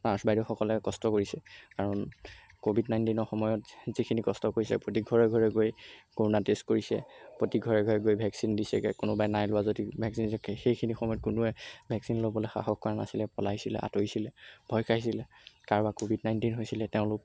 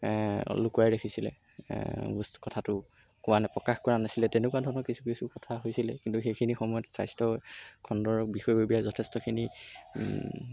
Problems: background sounds at intervals